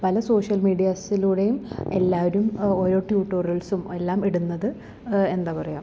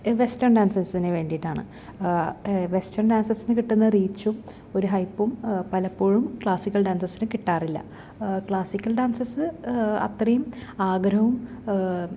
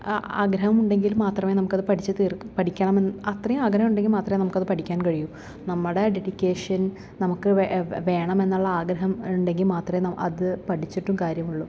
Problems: background sounds at intervals